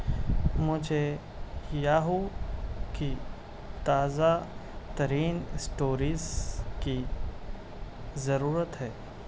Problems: constant background noise